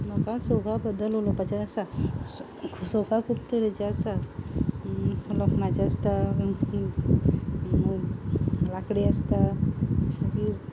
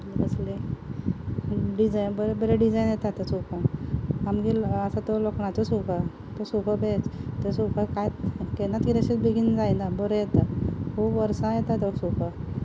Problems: background sounds at intervals